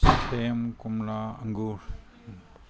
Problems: low volume